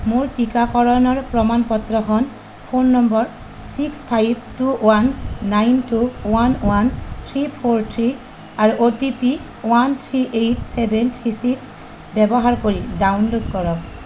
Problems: constant background noise